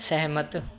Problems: background sounds at intervals